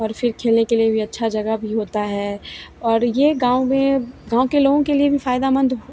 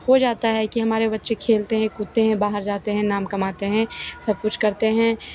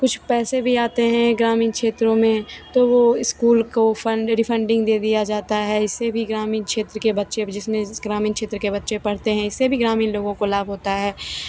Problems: constant background noise, background conversations at intervals